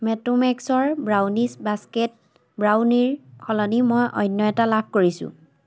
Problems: constant background noise